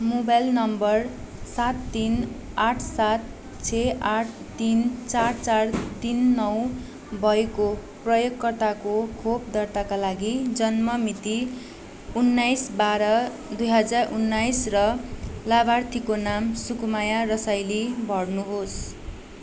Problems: constant background noise